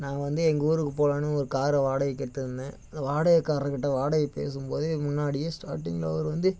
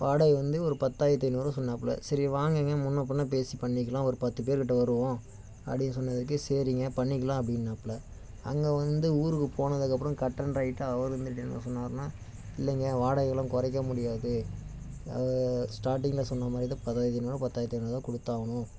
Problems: constant background noise